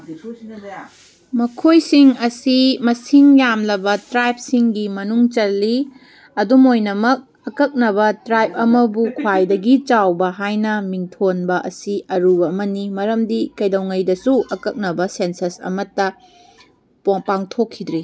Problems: background sounds at intervals